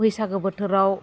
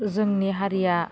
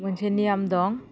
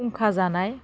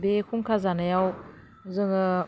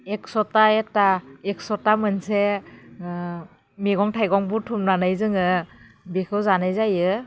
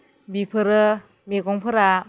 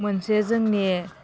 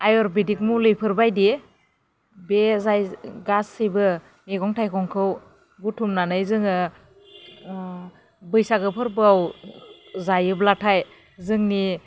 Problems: low volume